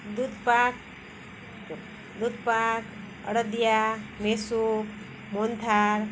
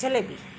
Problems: constant background noise